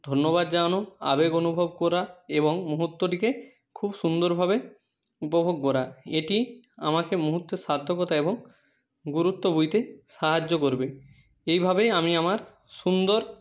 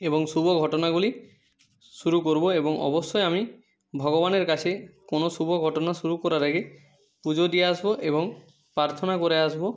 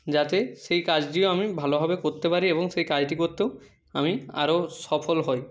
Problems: background sounds at intervals